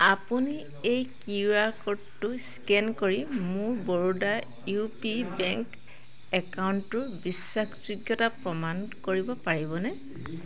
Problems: constant background noise